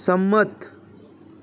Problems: constant background noise